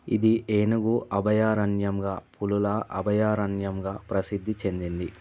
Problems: constant background noise